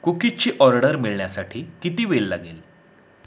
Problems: constant background noise